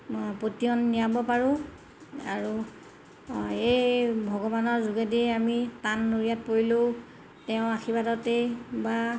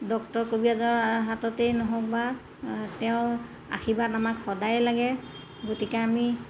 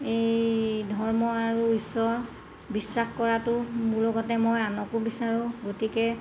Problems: constant background noise